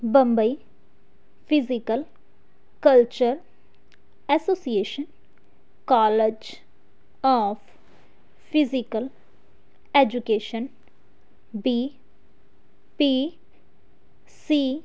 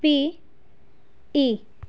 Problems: none marked